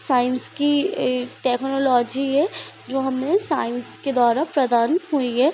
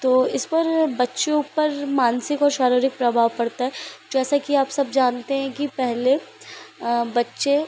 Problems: constant background noise